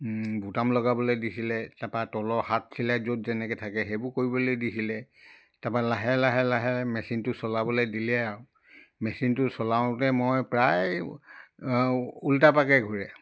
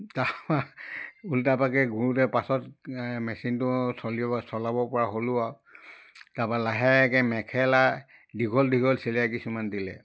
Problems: none marked